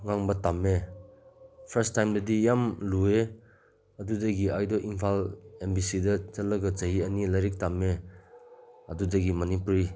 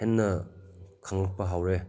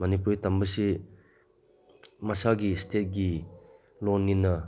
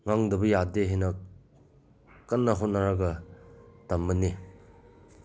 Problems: background sounds at intervals